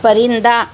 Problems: none marked